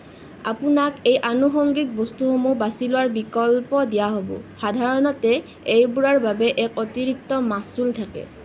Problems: constant background noise